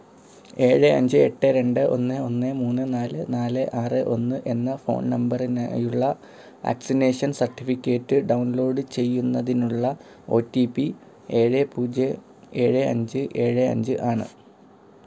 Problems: low volume